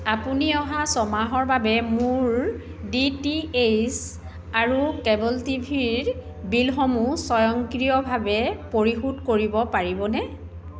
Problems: constant background noise, background conversations at intervals